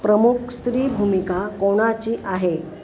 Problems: none marked